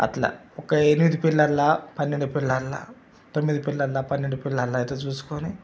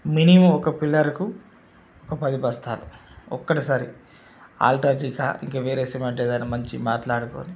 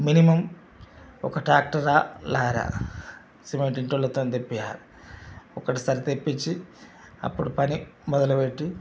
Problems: none marked